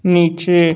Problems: constant background noise